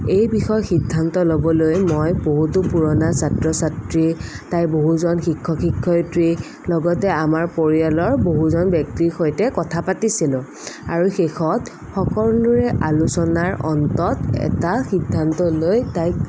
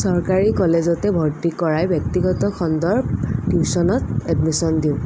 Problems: none marked